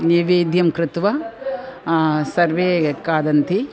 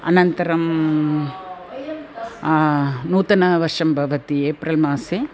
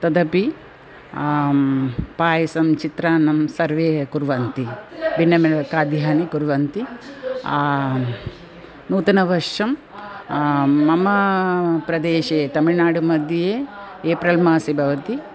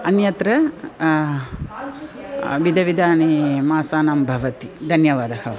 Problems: background sounds at intervals